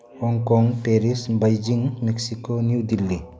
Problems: background sounds at intervals